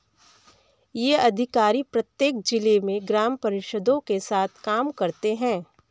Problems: background sounds at intervals, continuous background conversations